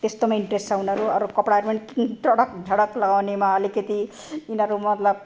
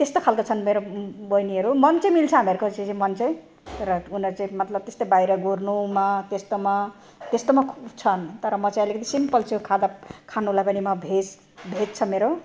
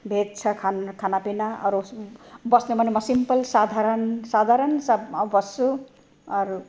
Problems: none marked